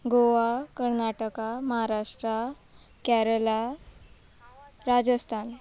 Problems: background sounds at intervals